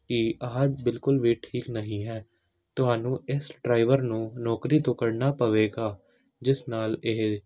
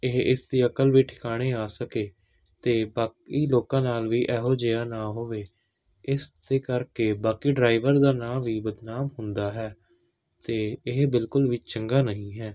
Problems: none marked